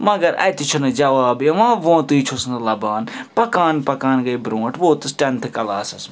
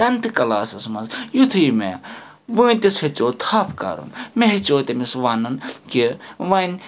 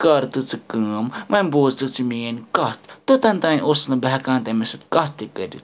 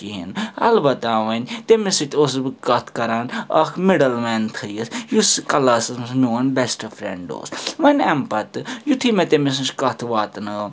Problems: background sounds at intervals